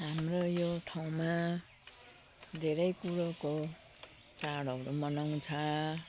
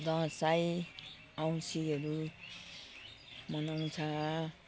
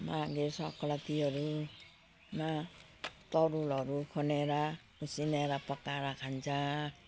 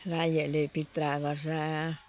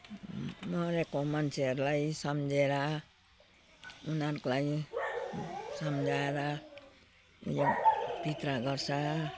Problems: constant background noise